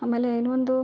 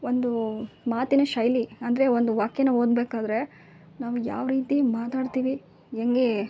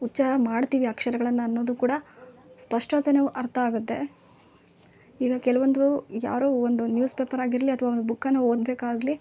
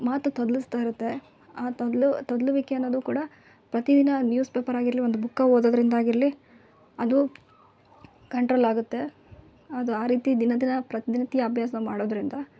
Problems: none marked